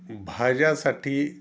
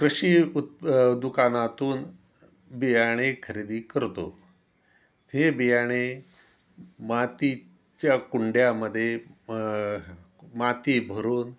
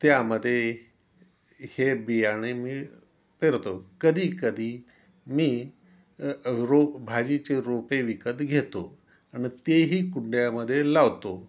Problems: none marked